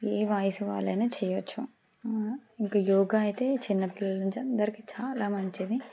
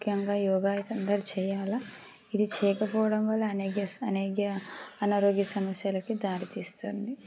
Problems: none marked